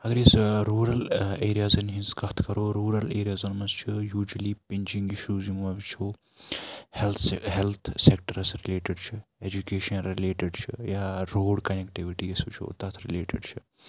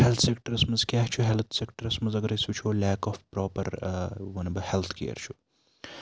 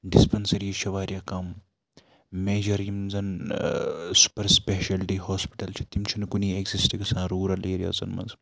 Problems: constant background noise